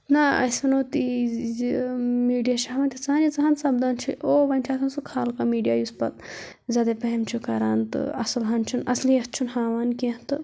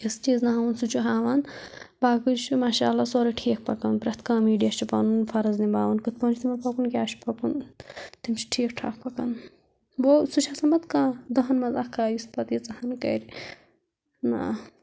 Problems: none marked